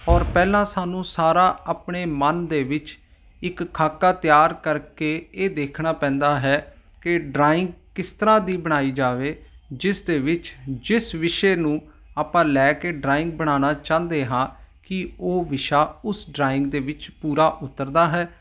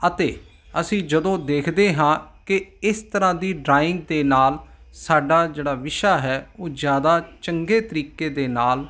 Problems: none marked